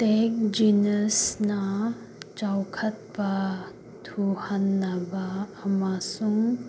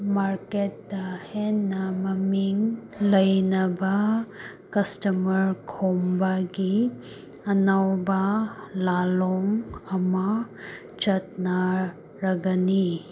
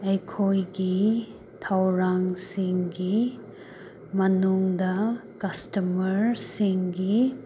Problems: constant background noise